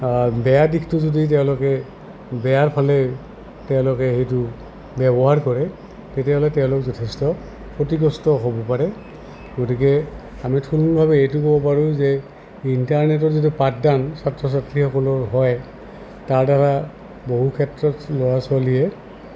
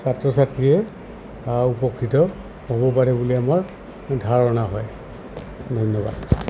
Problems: constant background noise